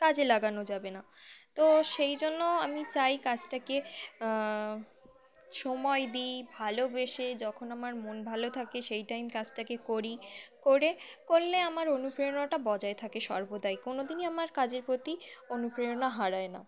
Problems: constant background noise, continuous background conversations